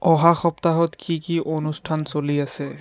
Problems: background conversations at intervals